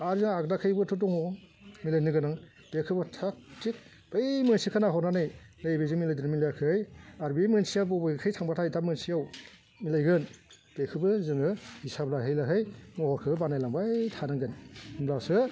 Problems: constant background noise